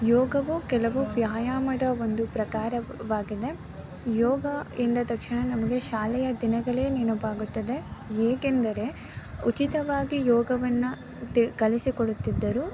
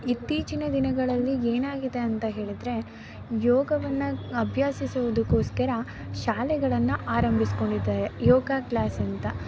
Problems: background sounds at intervals